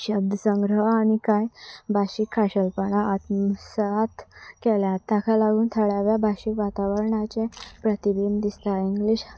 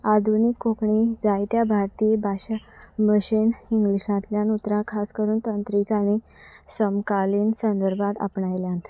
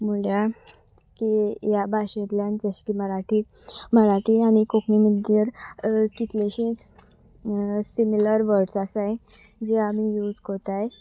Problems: none marked